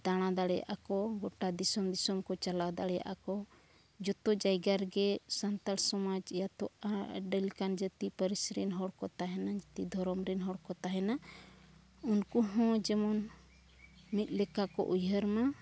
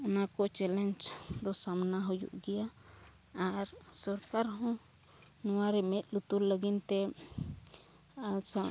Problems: none marked